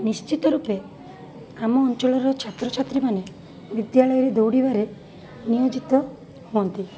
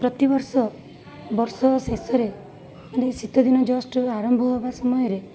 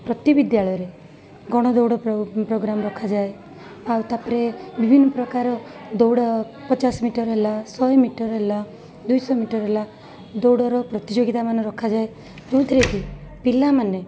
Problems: constant background noise, continuous background conversations